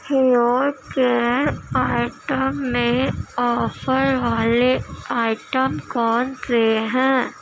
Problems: constant background noise